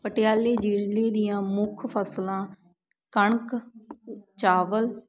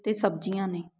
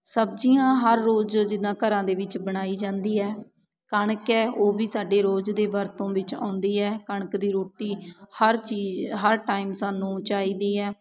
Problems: constant background noise